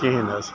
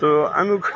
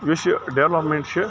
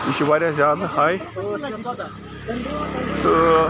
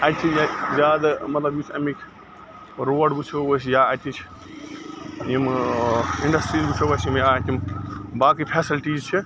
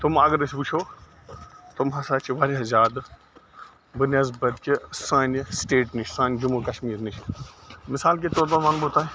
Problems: constant background noise